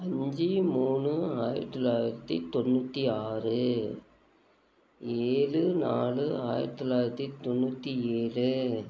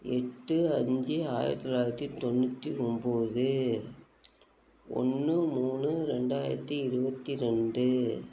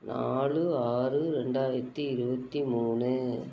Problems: constant background noise